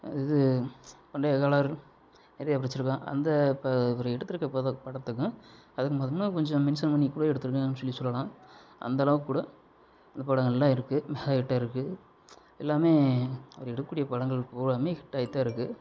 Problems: none marked